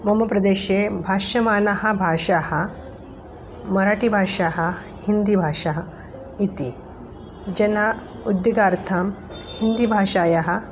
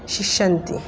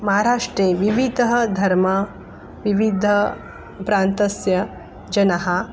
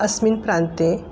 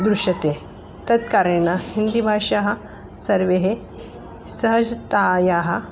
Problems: background sounds at intervals